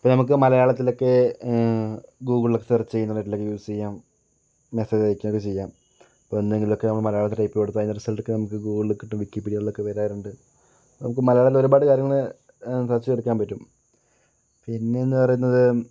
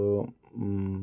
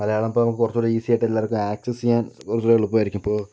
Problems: none marked